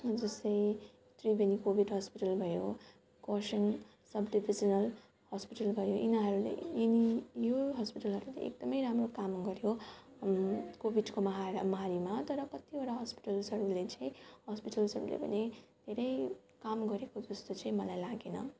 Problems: constant background noise, background conversations at intervals